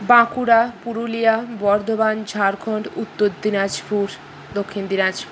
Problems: constant background noise